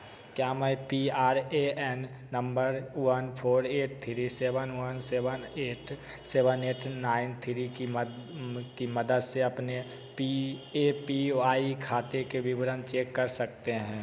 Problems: constant background noise, echo